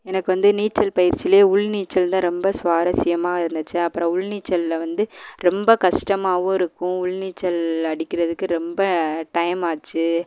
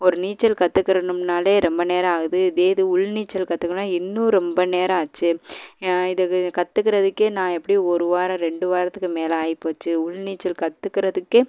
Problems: none marked